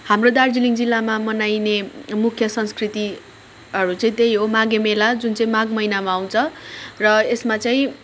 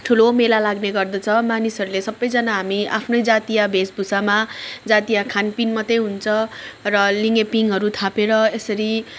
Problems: background sounds at intervals, background conversations at intervals